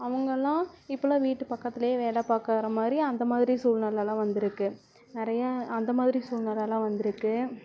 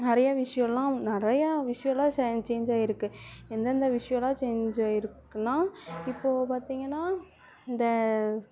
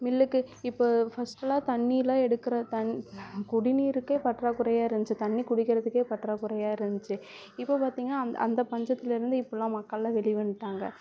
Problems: background sounds at intervals